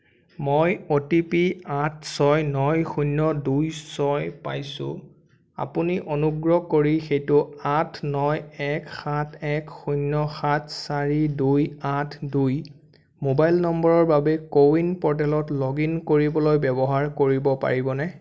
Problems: none marked